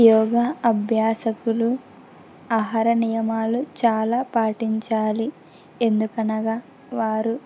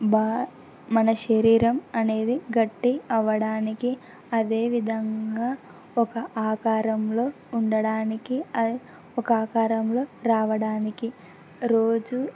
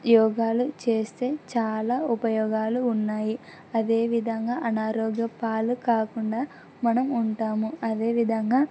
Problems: none marked